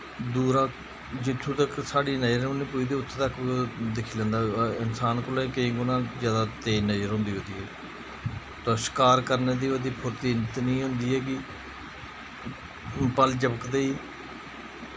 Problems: constant background noise